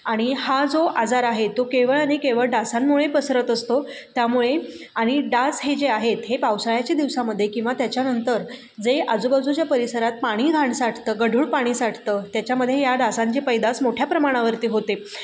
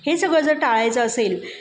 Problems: background sounds at intervals